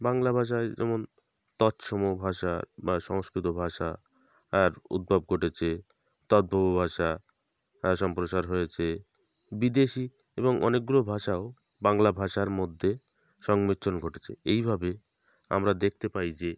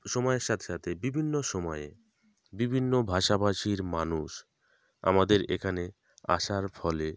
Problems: background sounds at intervals